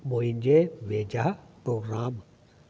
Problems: constant background noise, echo